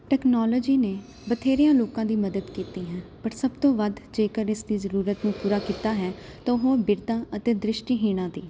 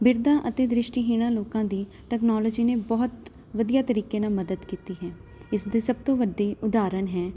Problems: constant background noise